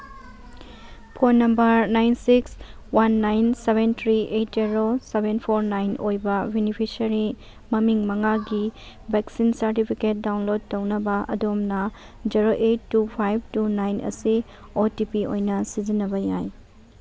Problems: background sounds at intervals